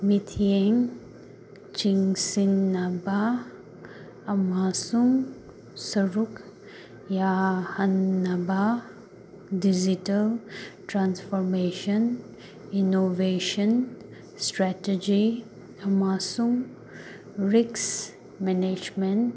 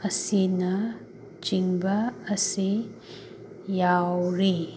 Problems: constant background noise